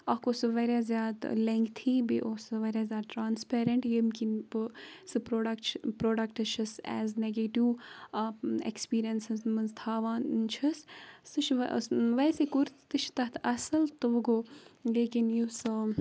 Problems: background sounds at intervals